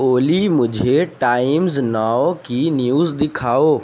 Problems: constant background noise